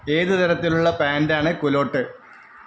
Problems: constant background noise